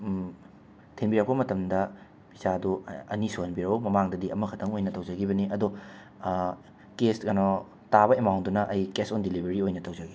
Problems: constant background noise